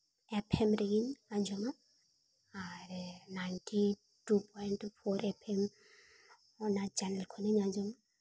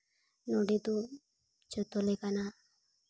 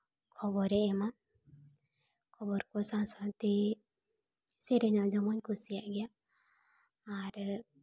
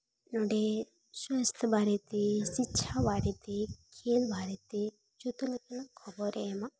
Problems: none marked